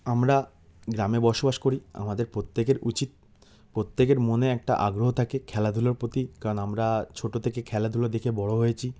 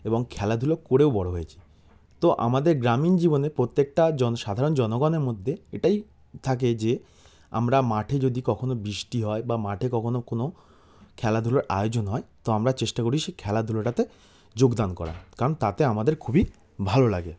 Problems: background sounds at intervals